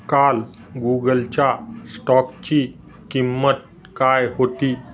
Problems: none marked